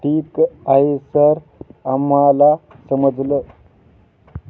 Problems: none marked